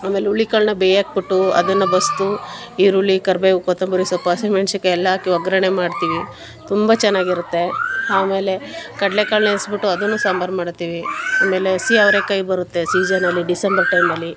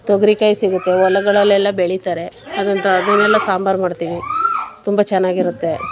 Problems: background sounds at intervals